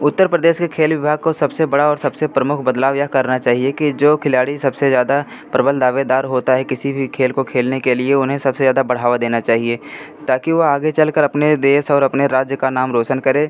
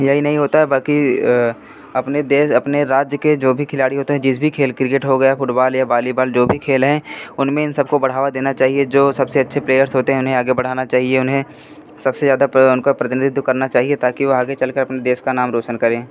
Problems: none marked